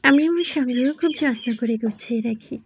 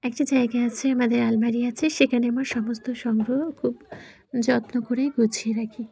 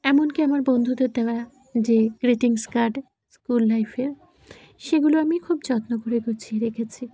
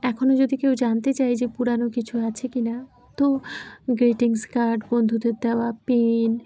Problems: none marked